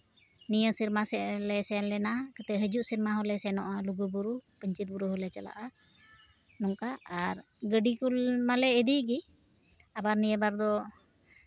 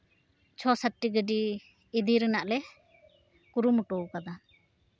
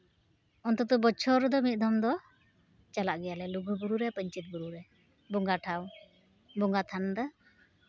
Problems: background sounds at intervals, background conversations at intervals